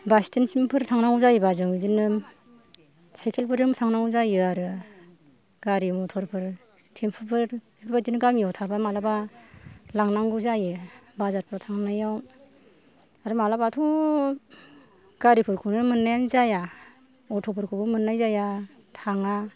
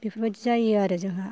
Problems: low volume